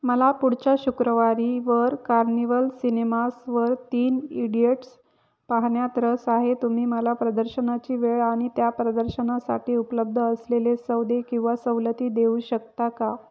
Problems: none marked